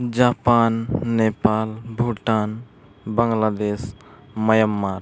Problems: none marked